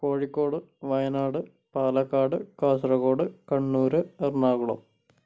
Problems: none marked